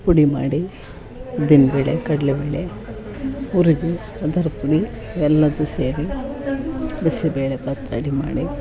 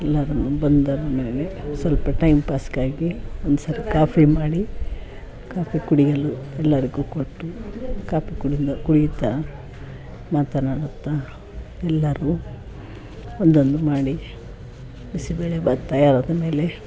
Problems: background sounds at intervals, background conversations at intervals